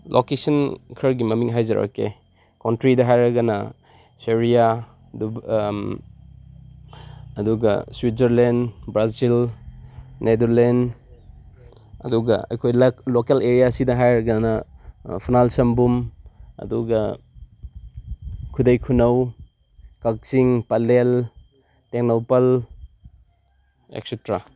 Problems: background conversations at intervals